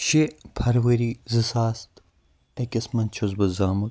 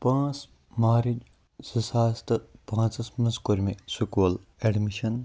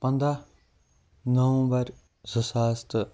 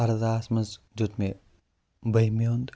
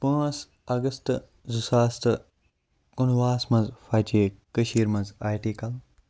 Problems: low volume